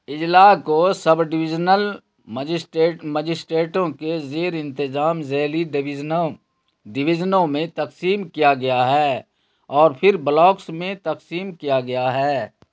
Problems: none marked